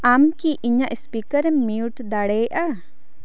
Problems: constant background noise